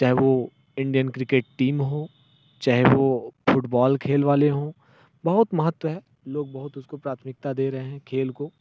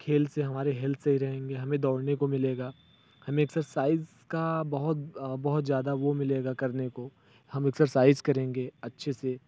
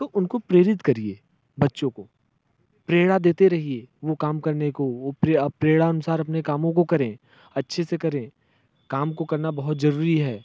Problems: none marked